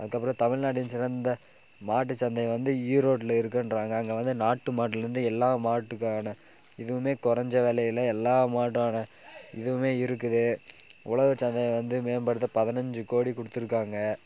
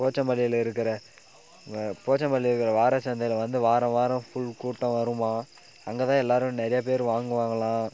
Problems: background sounds at intervals